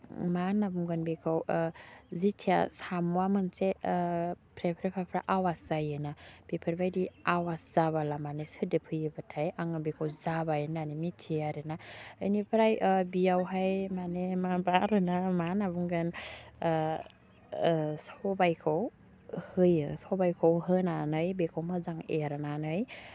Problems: low volume